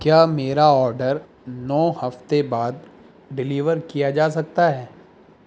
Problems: constant background noise